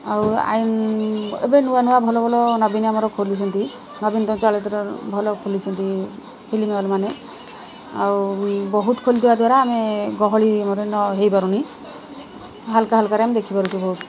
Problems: constant background noise